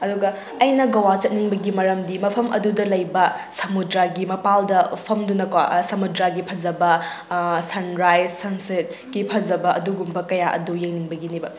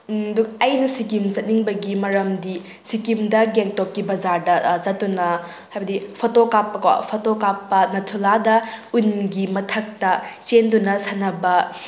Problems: background sounds at intervals